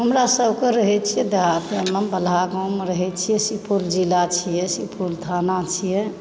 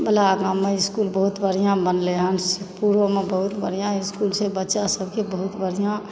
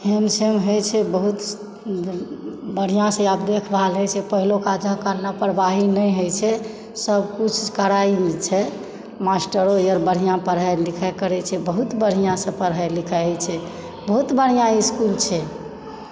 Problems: background sounds at intervals